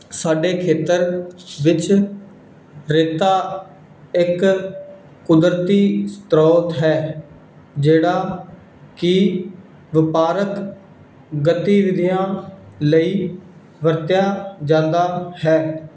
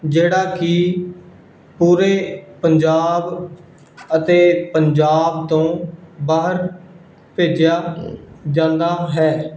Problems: background sounds at intervals